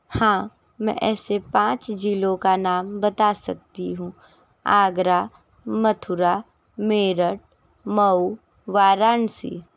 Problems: constant background noise